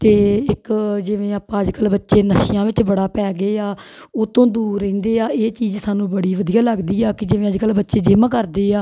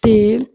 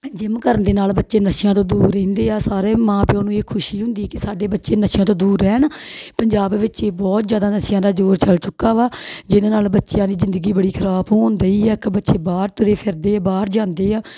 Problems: none marked